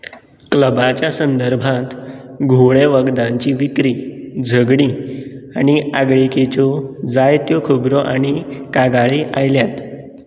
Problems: none marked